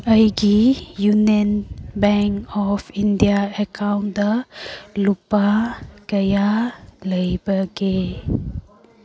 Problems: background sounds at intervals